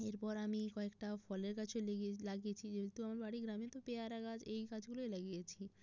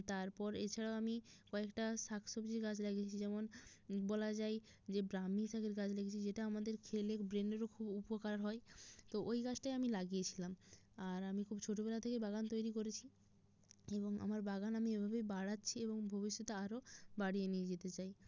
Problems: none marked